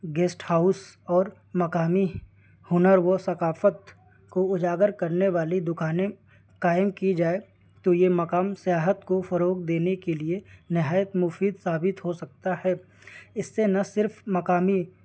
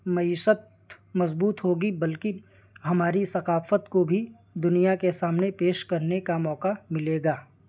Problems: constant background noise